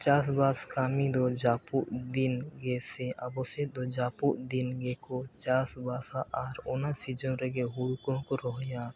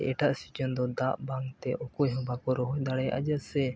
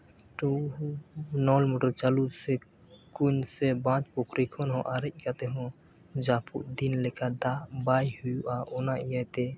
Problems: none marked